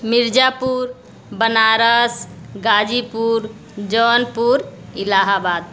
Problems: none marked